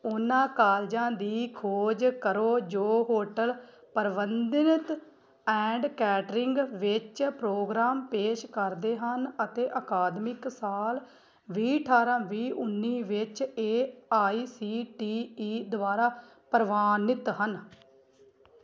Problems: background sounds at intervals